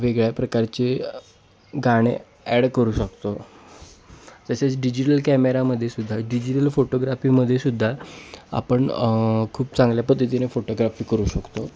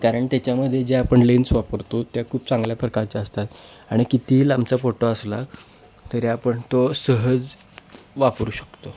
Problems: none marked